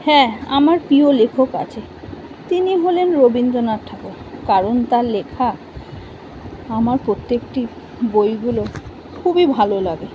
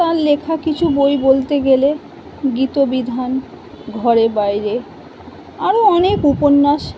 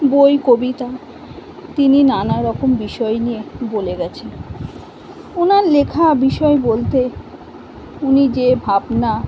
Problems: none marked